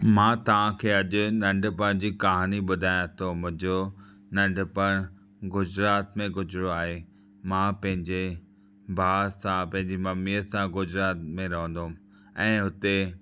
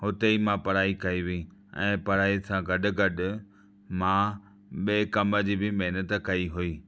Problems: background sounds at intervals